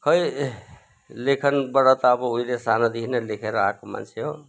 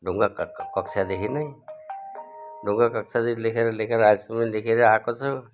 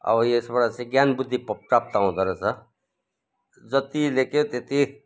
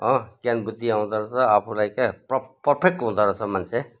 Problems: background sounds at intervals, background conversations at intervals